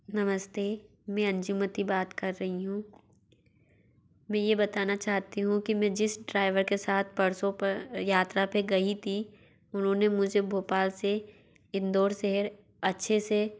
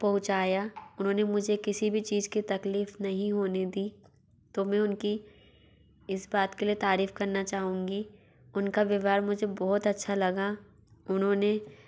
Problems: background sounds at intervals